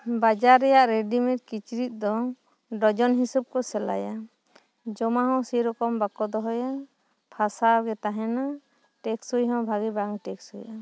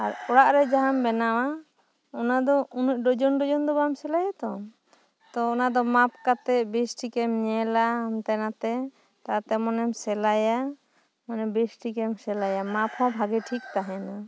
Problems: background sounds at intervals